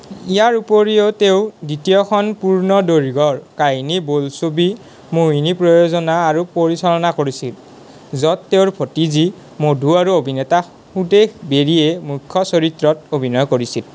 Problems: background sounds at intervals, background conversations at intervals